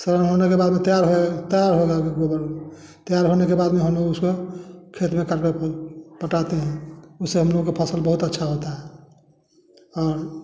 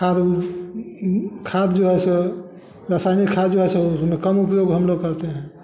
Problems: none marked